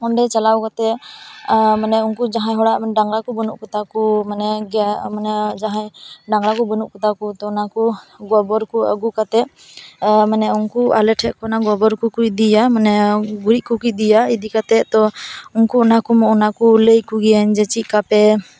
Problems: background sounds at intervals